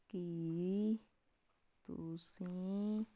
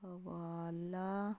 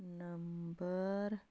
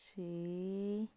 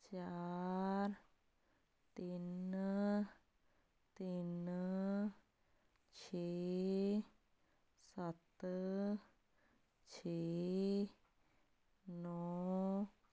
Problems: none marked